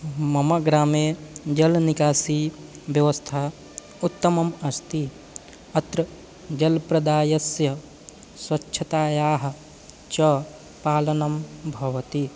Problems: constant background noise